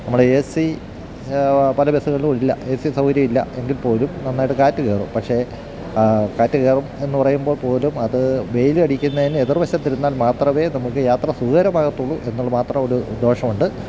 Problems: background sounds at intervals